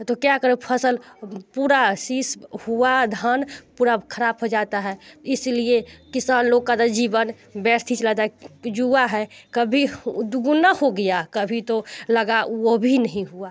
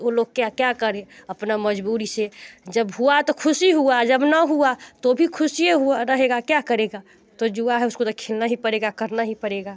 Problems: constant background noise